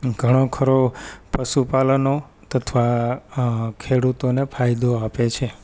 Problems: none marked